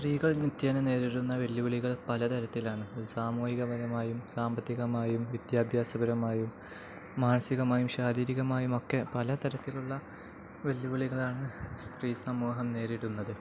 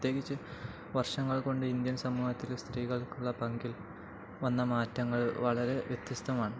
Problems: none marked